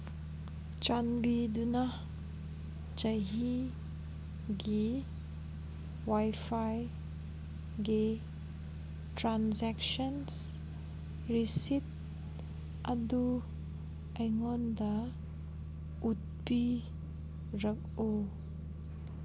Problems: background sounds at intervals